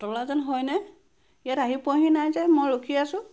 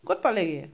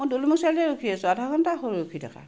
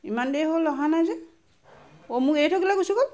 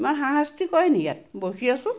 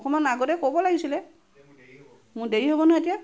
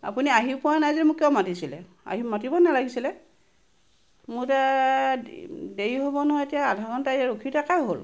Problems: background sounds at intervals